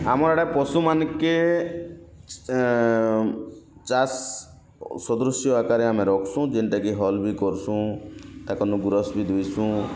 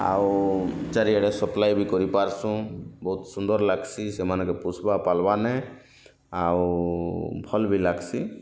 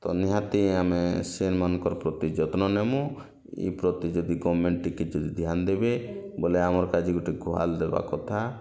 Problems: constant background noise